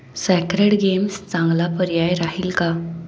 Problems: constant background noise